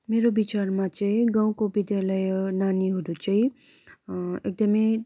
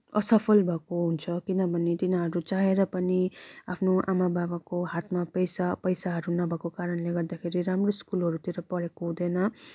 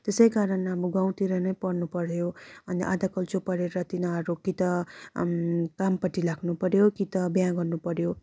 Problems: none marked